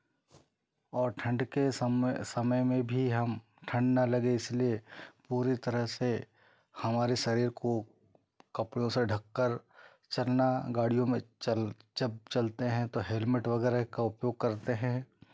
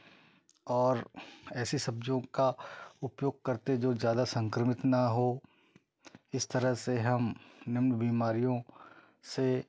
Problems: none marked